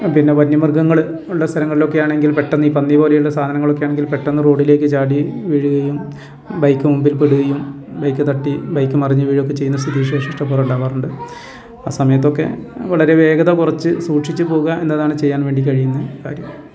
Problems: constant background noise